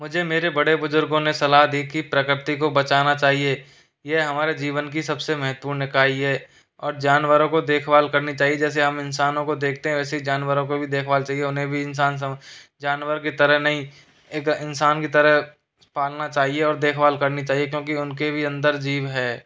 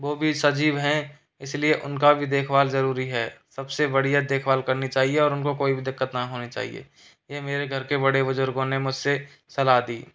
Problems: none marked